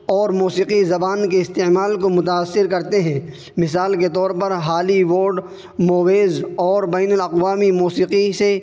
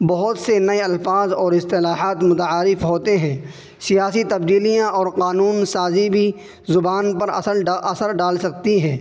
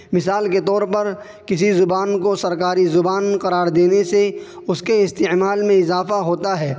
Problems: constant background noise